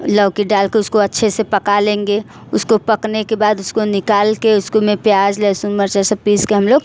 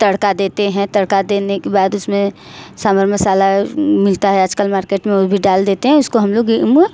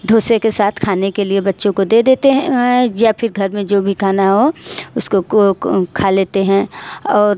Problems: constant background noise, echo